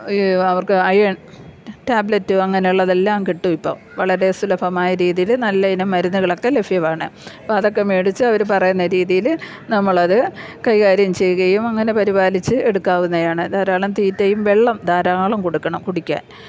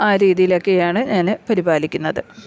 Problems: low volume